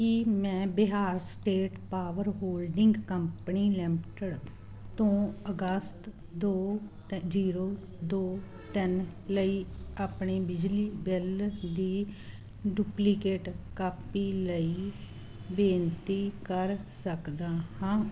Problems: none marked